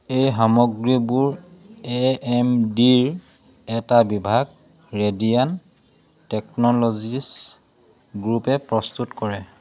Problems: none marked